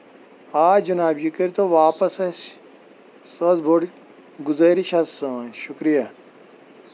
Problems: constant background noise